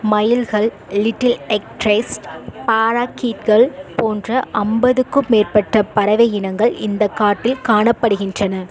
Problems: background conversations at intervals